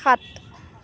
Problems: background sounds at intervals